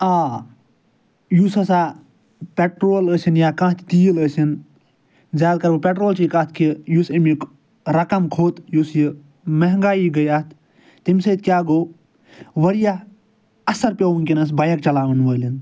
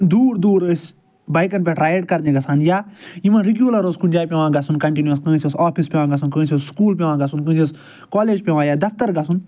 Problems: none marked